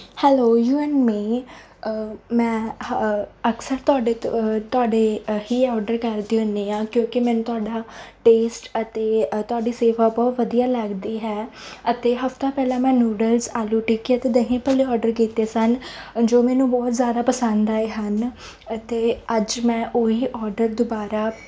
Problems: none marked